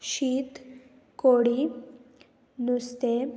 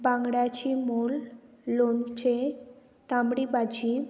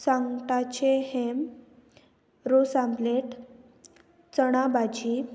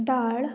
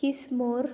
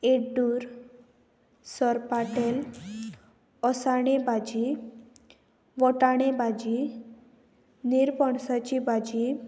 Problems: none marked